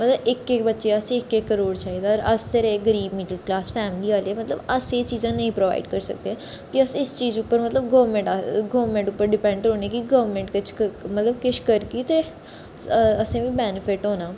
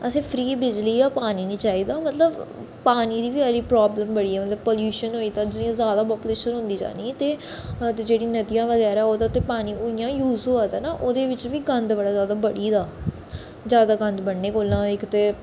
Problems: echo